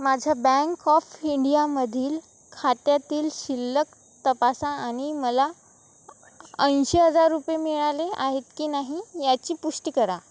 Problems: none marked